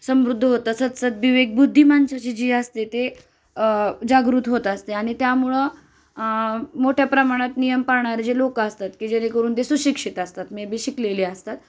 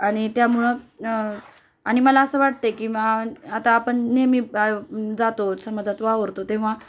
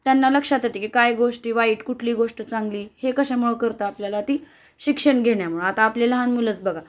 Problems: constant background noise